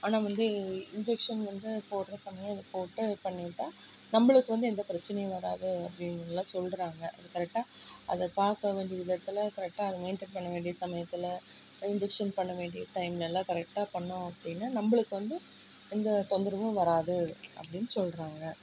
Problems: low volume